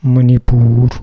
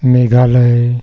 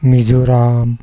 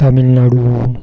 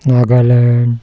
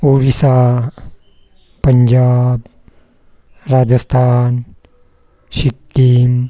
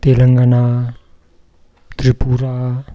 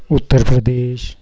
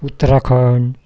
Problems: none marked